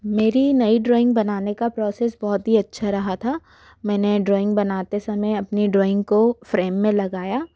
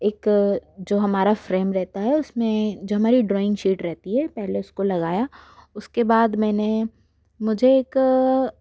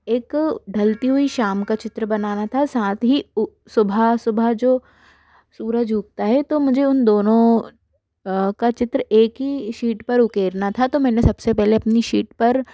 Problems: none marked